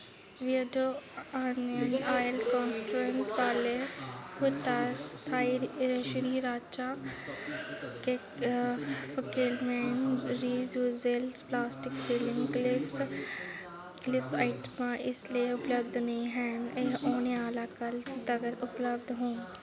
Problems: constant background noise, background conversations at intervals